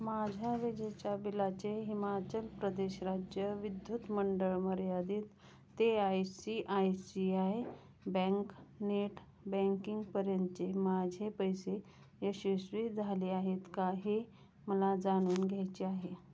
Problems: constant background noise, background conversations at intervals